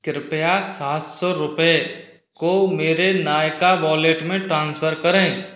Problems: none marked